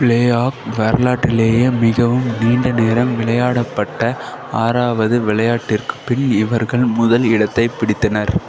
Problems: constant background noise